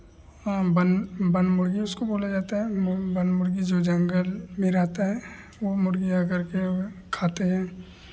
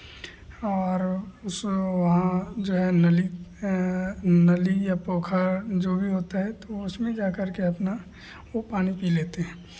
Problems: none marked